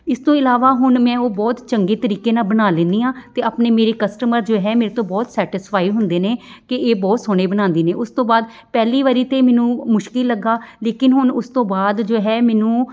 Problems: none marked